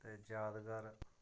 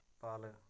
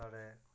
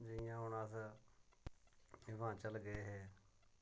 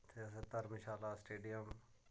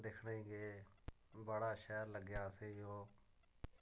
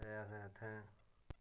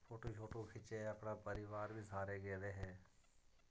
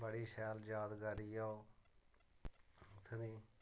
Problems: none marked